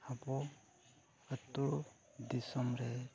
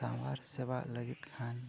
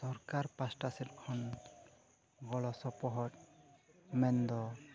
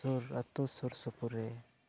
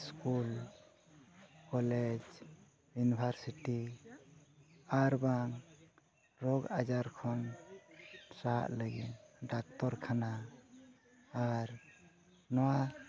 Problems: none marked